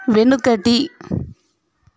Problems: constant background noise